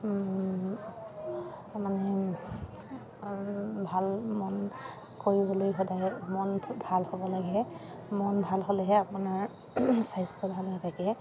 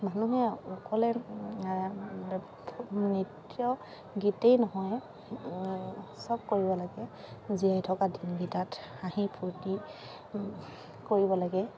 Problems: constant background noise